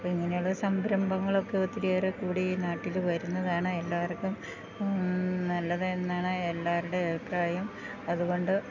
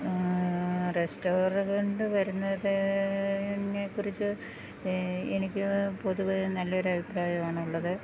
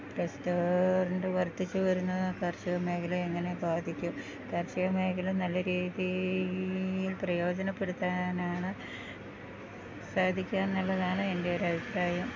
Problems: constant background noise